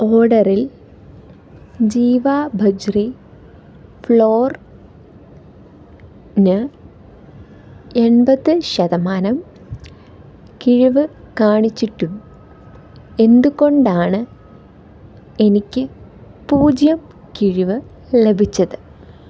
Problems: background sounds at intervals